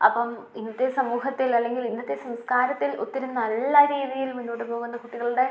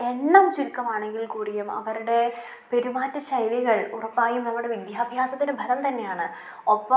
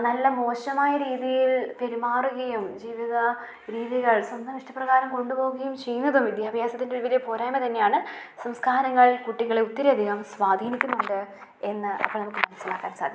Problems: low volume